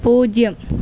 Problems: none marked